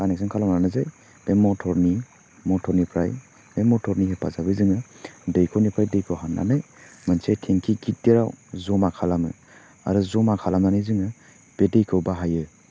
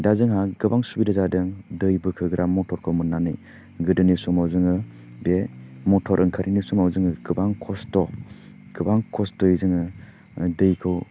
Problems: none marked